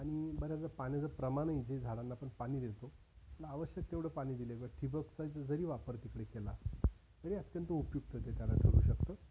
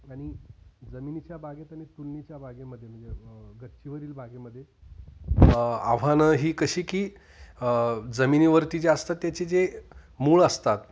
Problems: constant background noise, background conversations at intervals